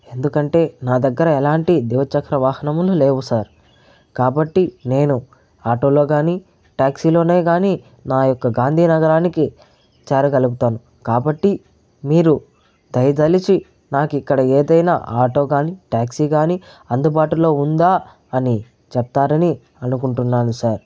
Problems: none marked